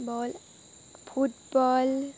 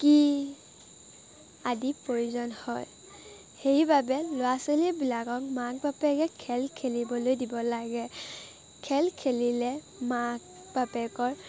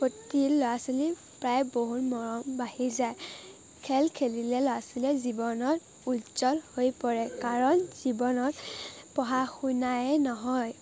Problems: constant background noise, background conversations at intervals